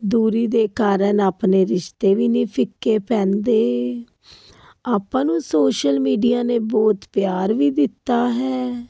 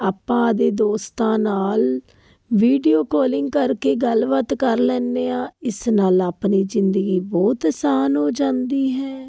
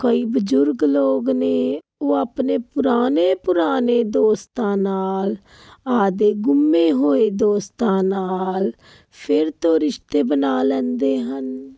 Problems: constant background noise